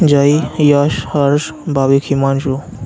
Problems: constant background noise